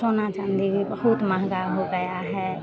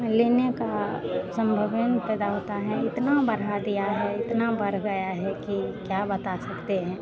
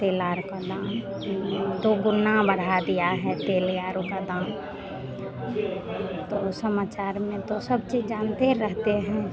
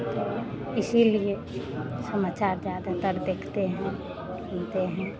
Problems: background sounds at intervals